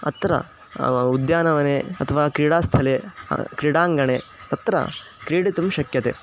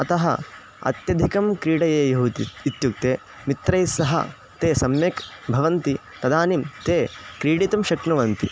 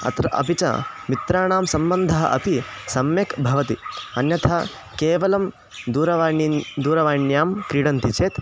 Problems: constant background noise